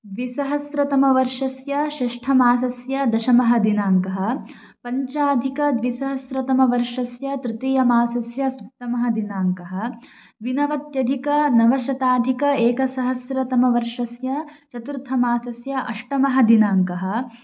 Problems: none marked